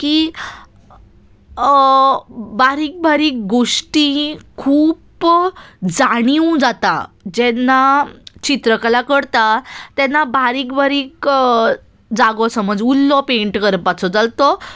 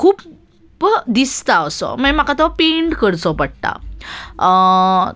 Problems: none marked